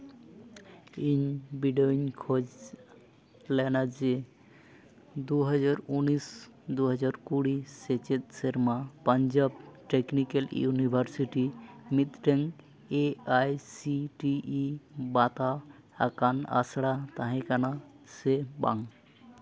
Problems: none marked